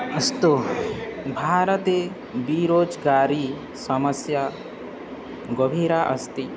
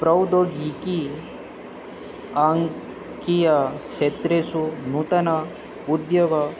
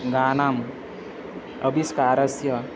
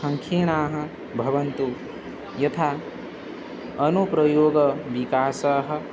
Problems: constant background noise, background conversations at intervals